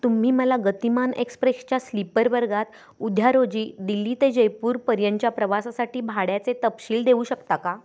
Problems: constant background noise, continuous background conversations